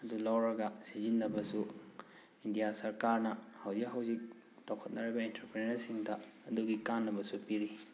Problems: background sounds at intervals